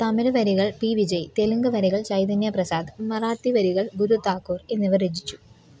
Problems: none marked